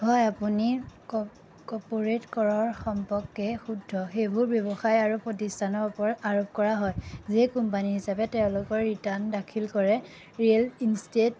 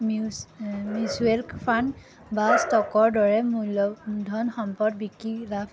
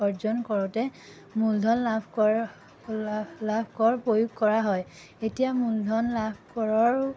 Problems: background sounds at intervals